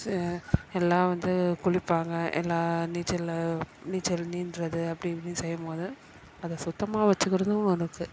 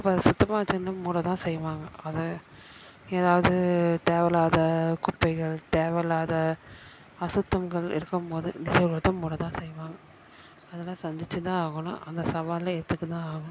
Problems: constant background noise, continuous background conversations